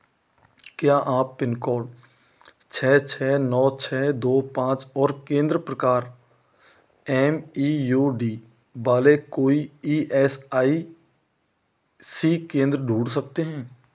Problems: constant background noise